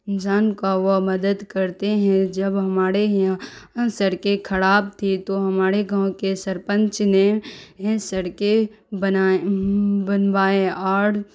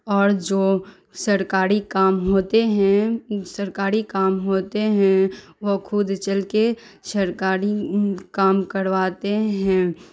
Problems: constant background noise